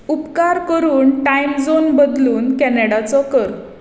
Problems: none marked